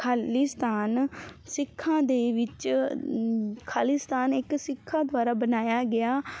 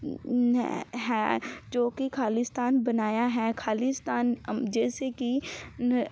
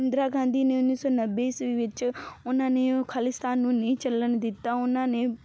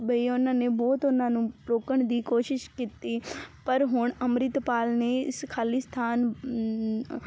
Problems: background sounds at intervals